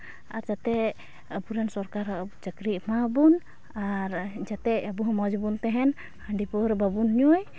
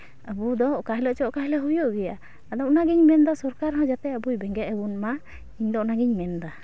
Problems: background sounds at intervals